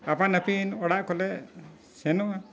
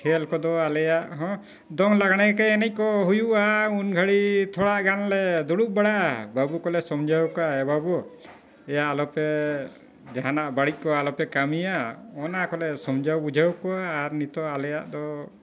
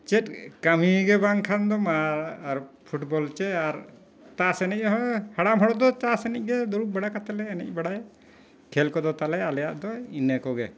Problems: none marked